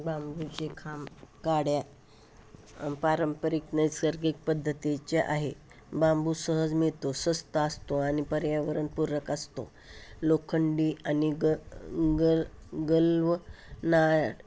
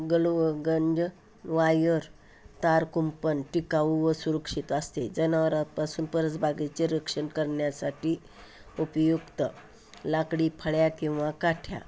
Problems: background sounds at intervals